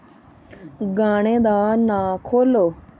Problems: constant background noise